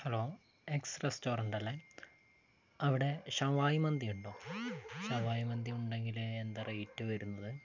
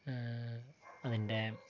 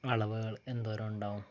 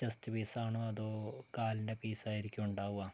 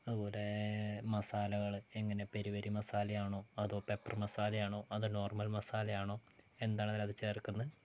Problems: low volume